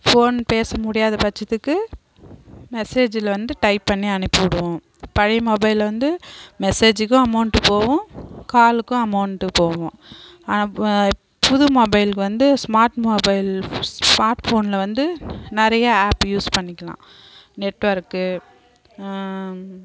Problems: background conversations at intervals